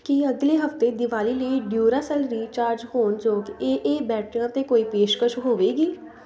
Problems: none marked